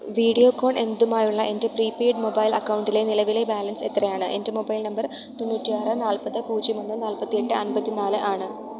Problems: background sounds at intervals